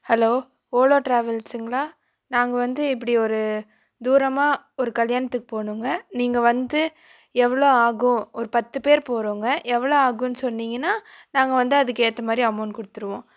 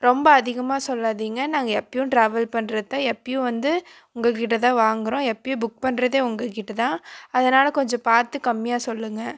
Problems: none marked